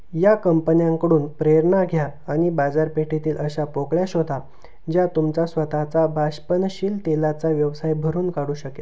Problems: none marked